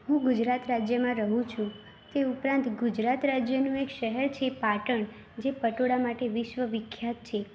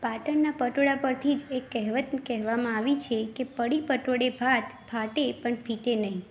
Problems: constant background noise, background conversations at intervals